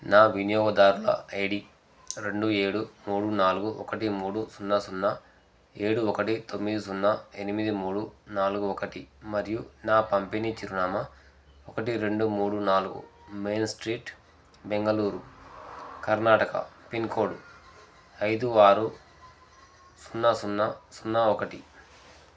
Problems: none marked